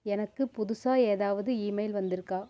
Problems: low volume